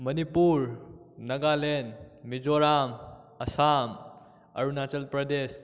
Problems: none marked